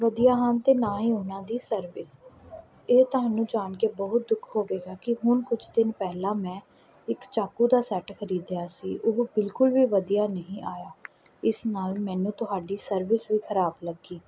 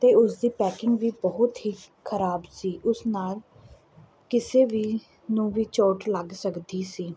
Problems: none marked